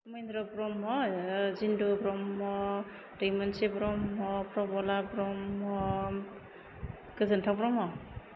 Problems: low volume